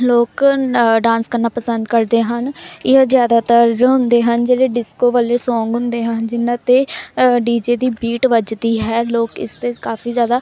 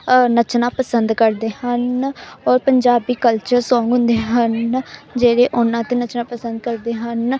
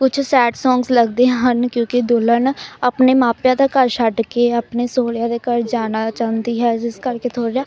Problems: background sounds at intervals, continuous background conversations